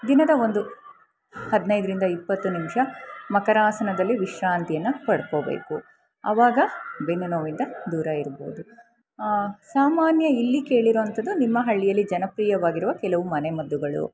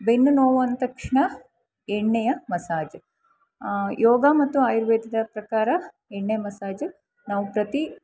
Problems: constant background noise